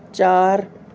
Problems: none marked